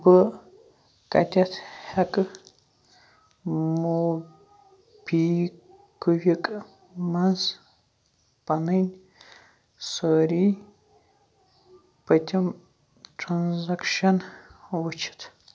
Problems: background sounds at intervals, background conversations at intervals